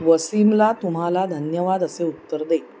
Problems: constant background noise, background conversations at intervals